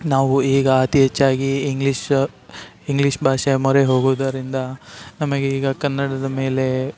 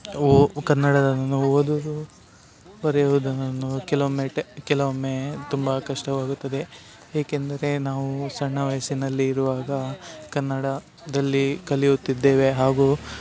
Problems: none marked